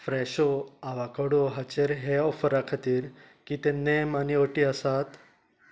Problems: constant background noise